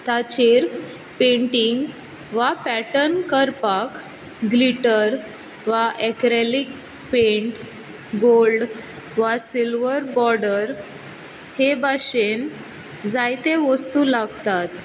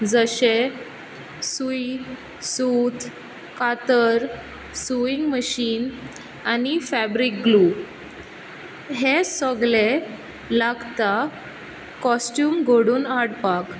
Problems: none marked